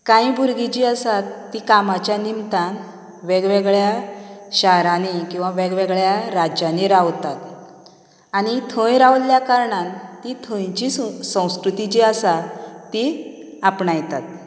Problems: background conversations at intervals